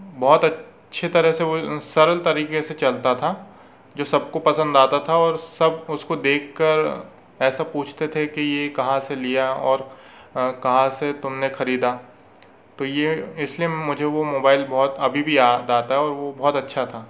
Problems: constant background noise